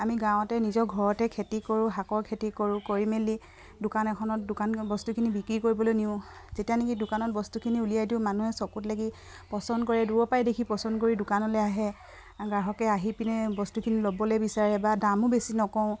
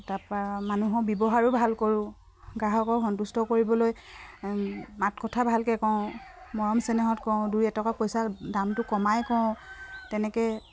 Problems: none marked